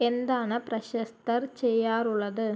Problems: low volume